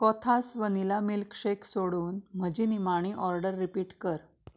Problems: none marked